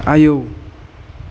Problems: constant background noise